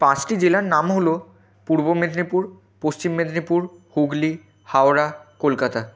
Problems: constant background noise